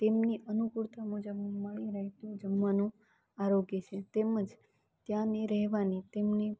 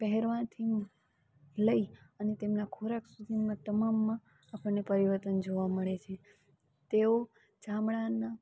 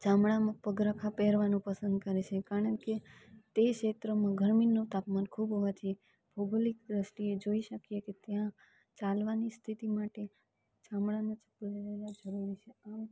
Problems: none marked